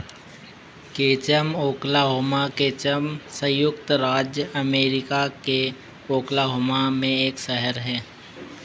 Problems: constant background noise